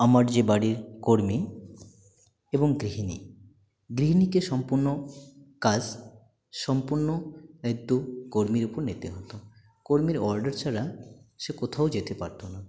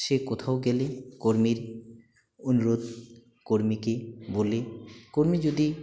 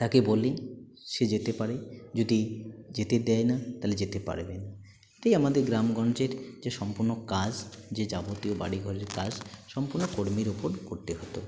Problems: constant background noise, continuous background conversations